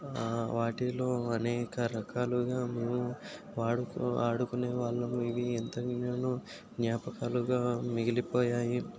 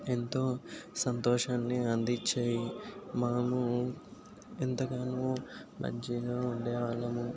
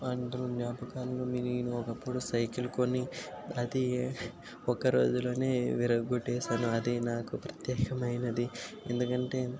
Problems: constant background noise